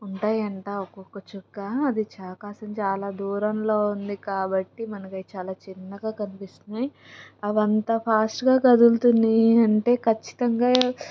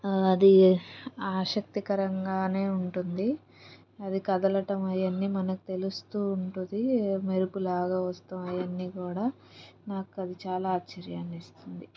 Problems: background sounds at intervals